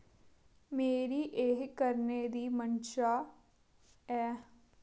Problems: low volume